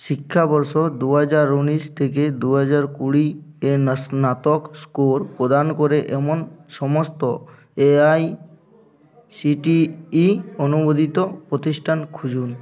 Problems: none marked